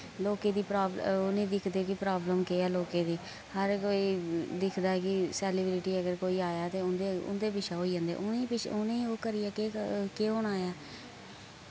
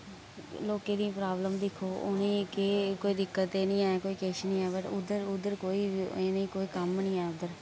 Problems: constant background noise, low volume